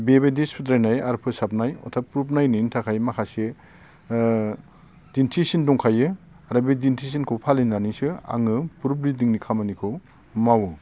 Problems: constant background noise